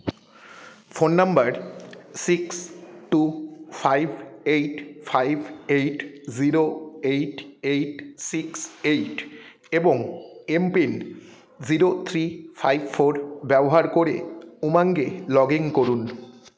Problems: continuous background conversations